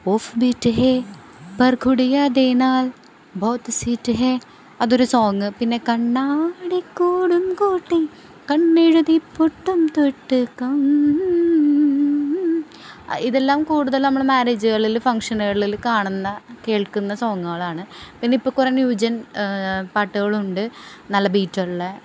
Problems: none marked